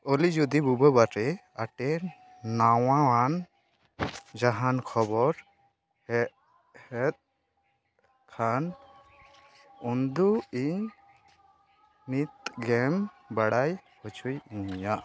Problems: constant background noise, background conversations at intervals